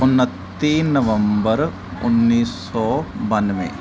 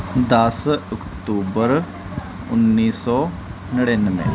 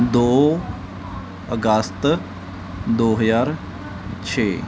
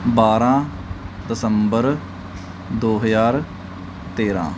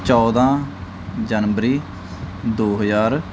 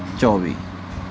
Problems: continuous background conversations